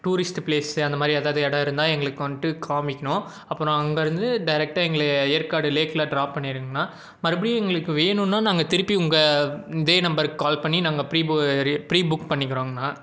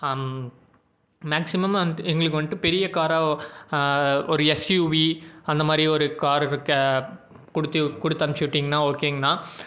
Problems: none marked